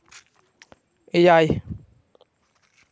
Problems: none marked